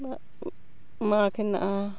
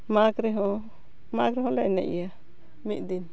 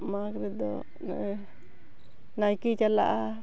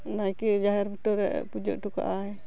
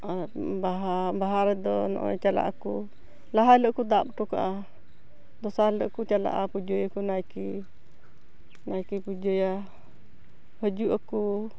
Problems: none marked